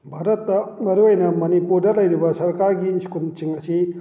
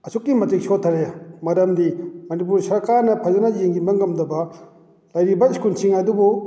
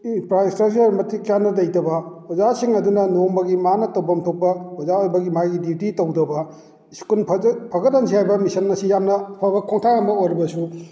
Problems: none marked